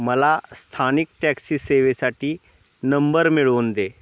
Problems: none marked